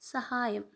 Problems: low volume